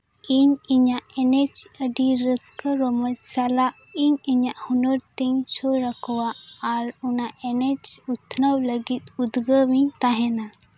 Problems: background sounds at intervals